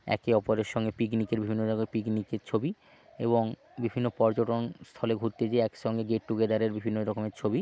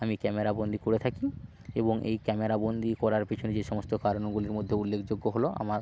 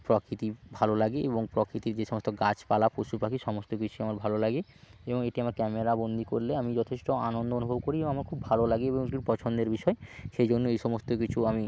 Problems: none marked